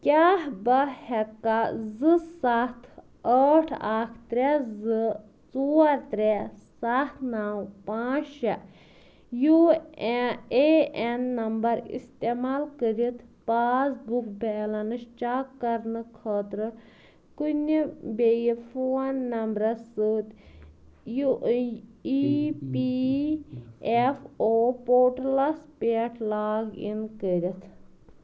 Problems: background conversations at intervals